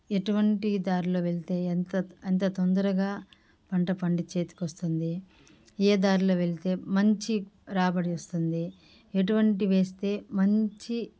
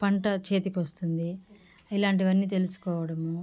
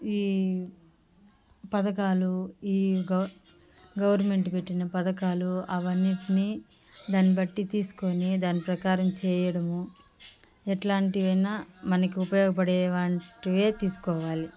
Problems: background sounds at intervals